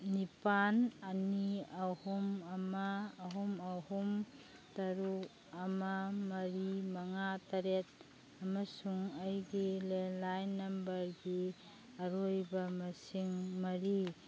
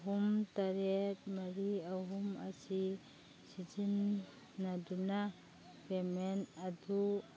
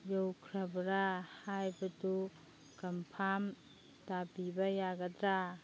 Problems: background sounds at intervals